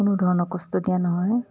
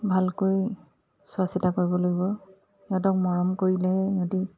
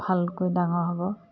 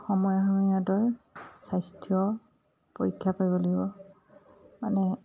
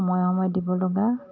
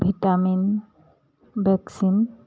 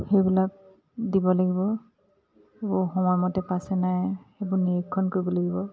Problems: none marked